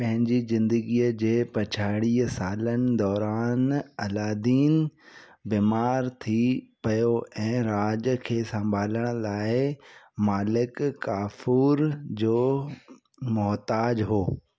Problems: background sounds at intervals